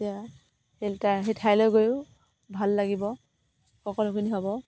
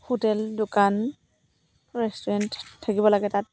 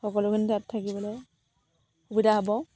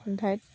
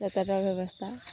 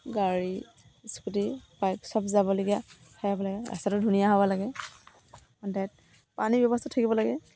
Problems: background sounds at intervals